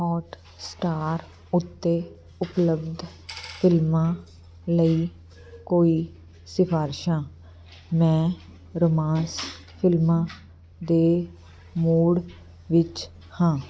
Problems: constant background noise